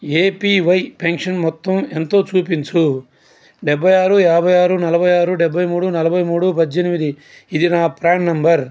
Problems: none marked